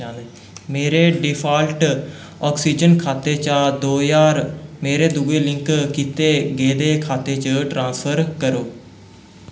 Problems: echo